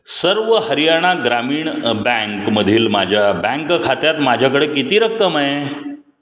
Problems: none marked